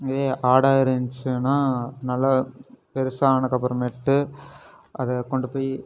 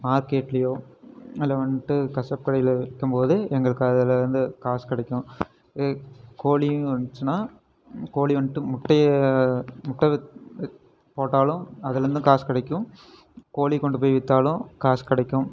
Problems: none marked